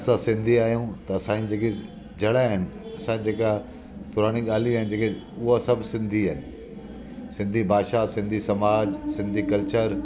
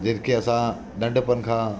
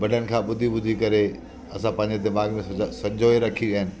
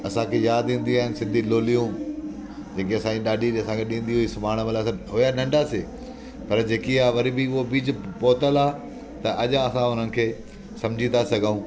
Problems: constant background noise